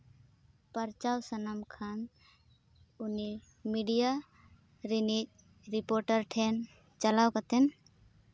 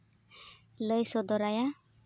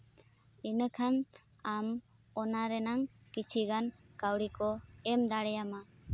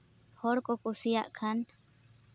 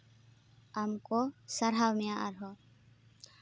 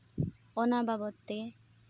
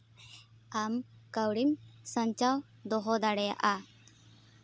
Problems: none marked